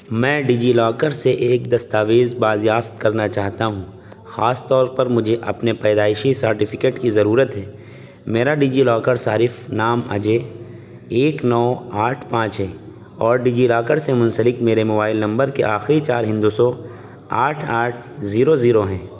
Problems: constant background noise